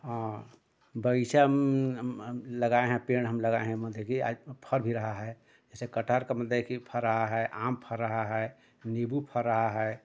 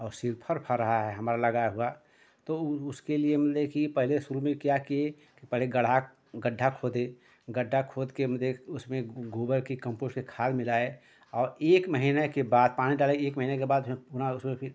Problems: constant background noise